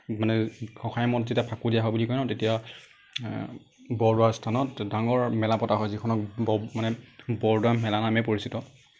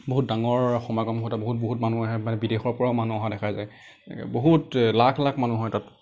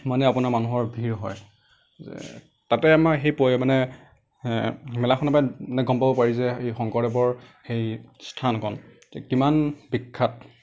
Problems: none marked